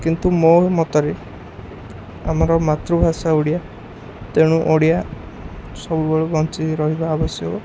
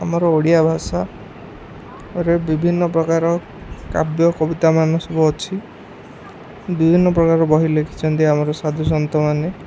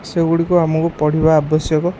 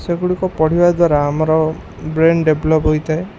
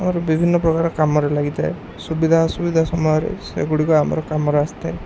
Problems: constant background noise, background conversations at intervals